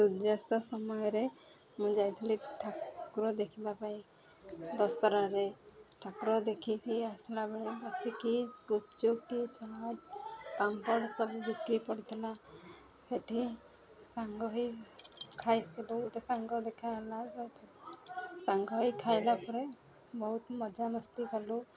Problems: constant background noise, continuous background conversations